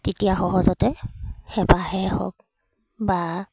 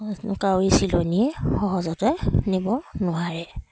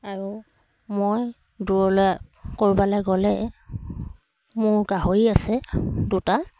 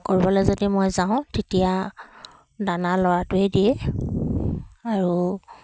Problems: none marked